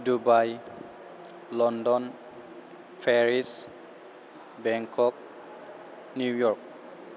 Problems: constant background noise